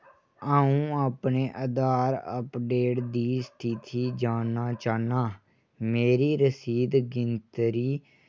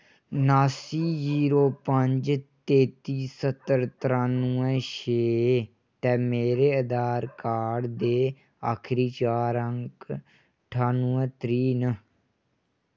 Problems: none marked